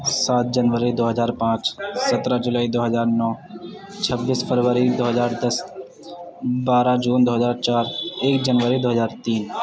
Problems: constant background noise, background conversations at intervals